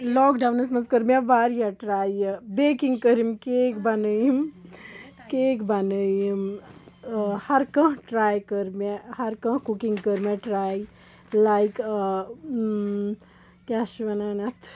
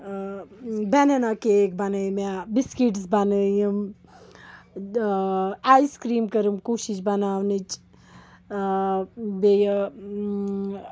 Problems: background sounds at intervals, background conversations at intervals